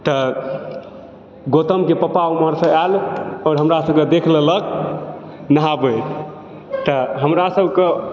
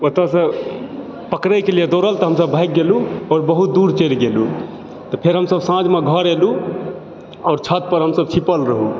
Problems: background sounds at intervals, background conversations at intervals